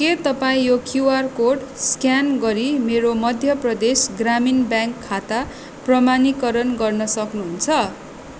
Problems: constant background noise